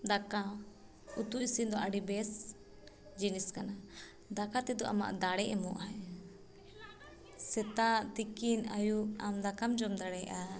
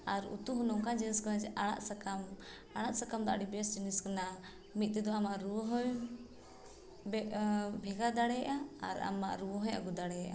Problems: background sounds at intervals